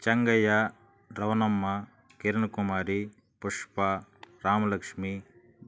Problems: none marked